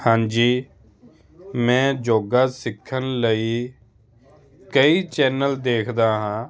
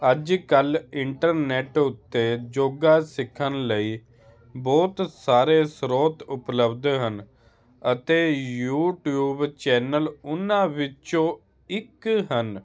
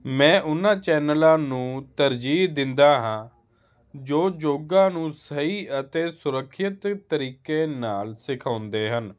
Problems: none marked